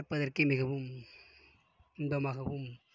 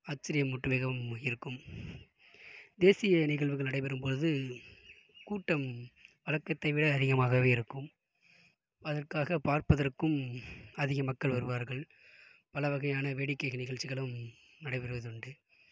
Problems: background sounds at intervals, low volume